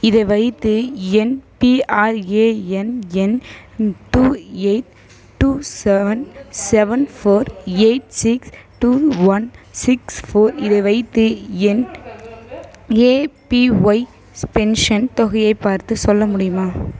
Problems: background conversations at intervals